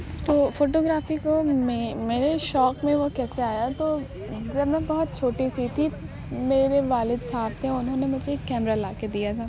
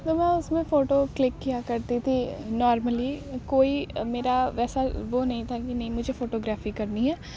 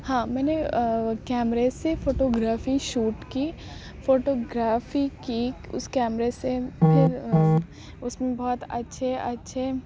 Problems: constant background noise